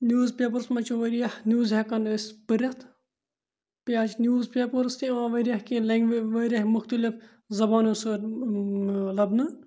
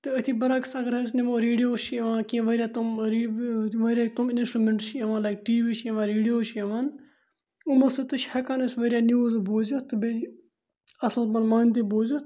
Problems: none marked